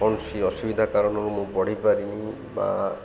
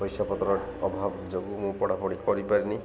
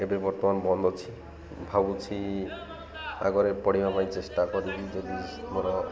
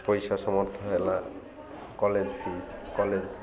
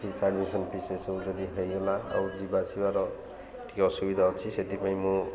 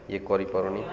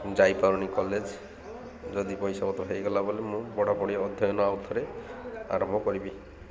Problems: constant background noise, continuous background conversations